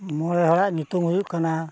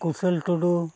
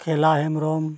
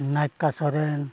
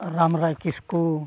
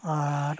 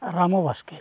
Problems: none marked